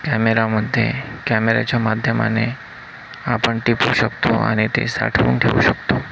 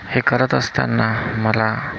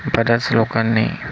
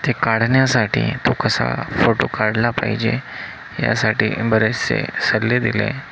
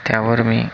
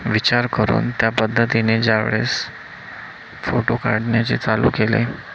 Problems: constant background noise